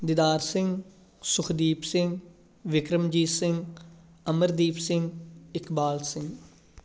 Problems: constant background noise